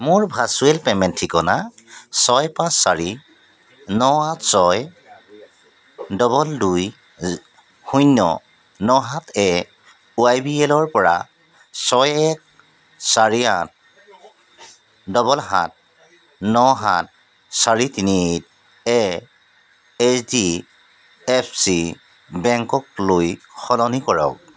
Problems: background sounds at intervals